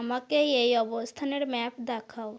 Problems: none marked